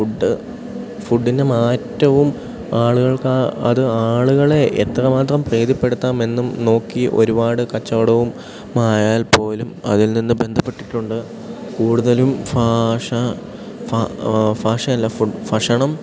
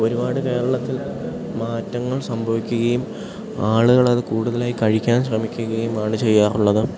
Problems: background sounds at intervals